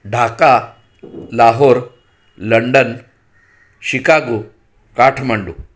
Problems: background sounds at intervals